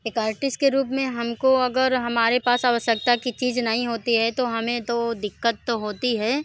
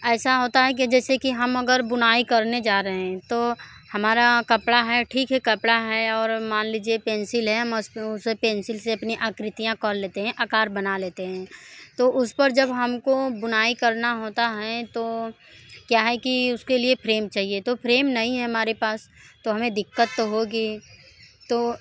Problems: none marked